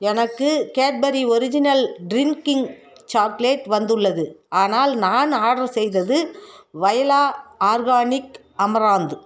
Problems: background conversations at intervals